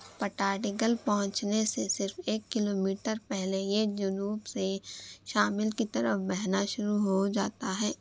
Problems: none marked